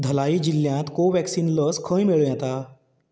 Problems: background sounds at intervals